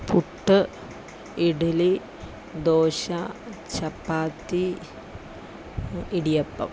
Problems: none marked